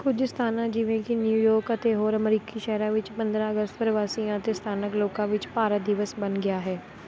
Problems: constant background noise